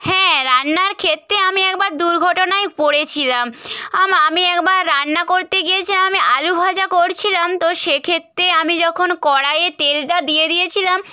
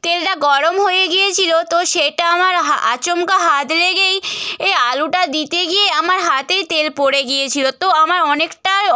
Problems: none marked